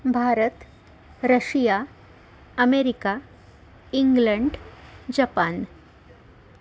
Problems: constant background noise